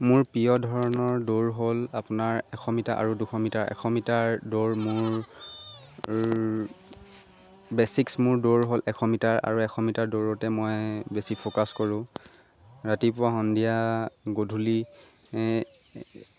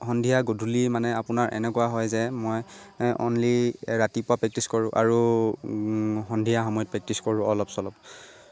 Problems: constant background noise